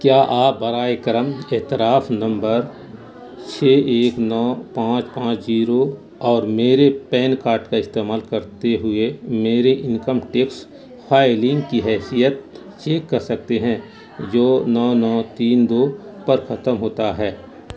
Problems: constant background noise